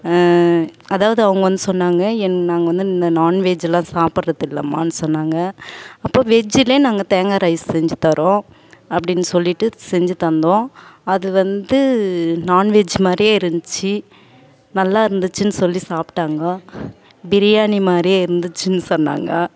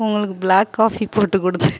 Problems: background sounds at intervals